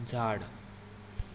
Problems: constant background noise